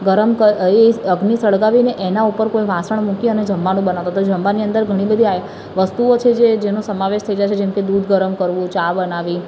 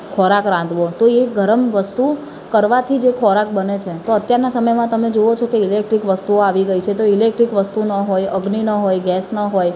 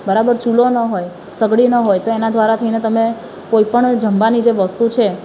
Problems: constant background noise